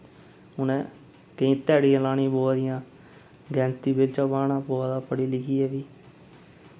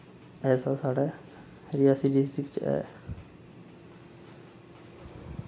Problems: constant background noise